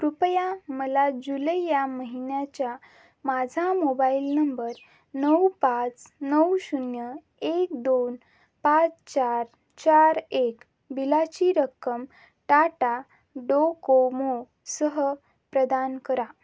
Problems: none marked